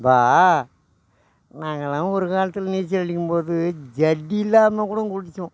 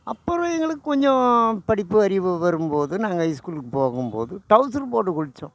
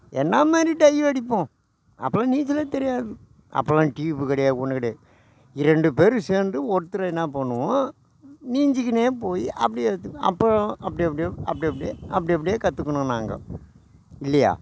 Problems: constant background noise